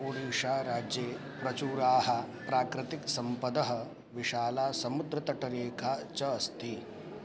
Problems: none marked